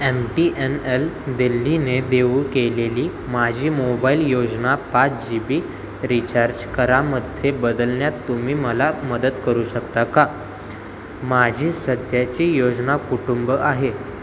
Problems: constant background noise